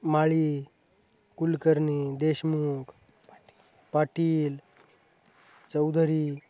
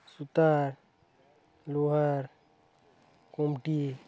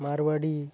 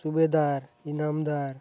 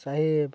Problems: background conversations at intervals